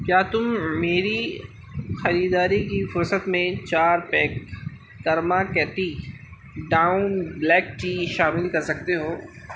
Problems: constant background noise